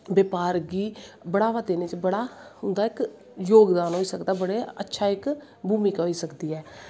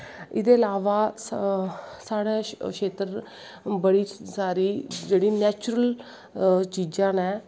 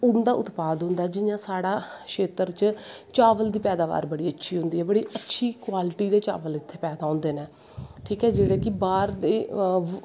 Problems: constant background noise